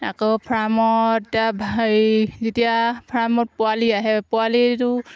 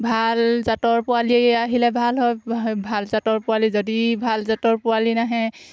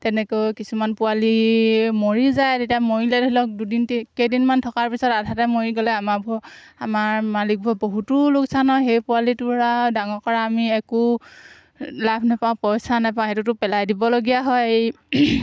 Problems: constant background noise